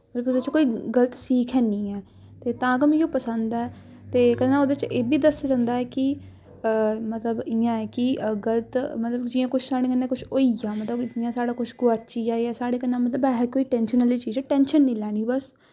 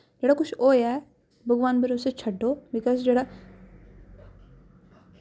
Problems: none marked